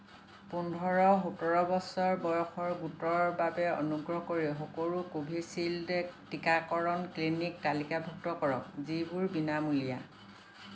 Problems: constant background noise